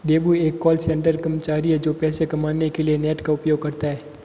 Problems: constant background noise